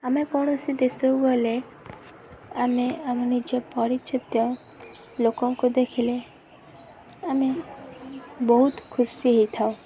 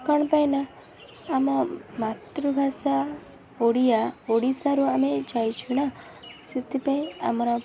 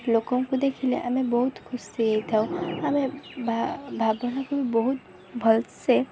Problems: constant background noise